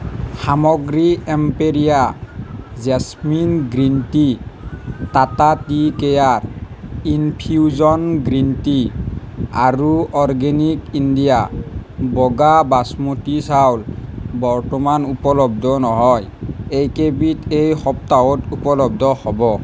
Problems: none marked